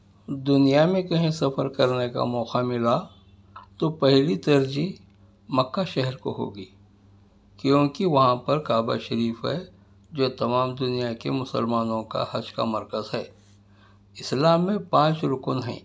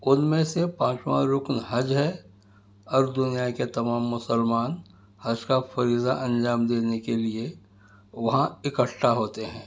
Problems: background sounds at intervals